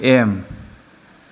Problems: constant background noise